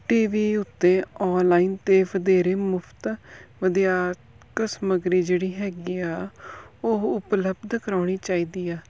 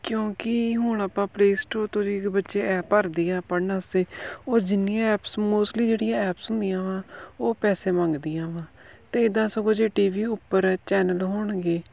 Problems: background sounds at intervals